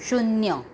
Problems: background sounds at intervals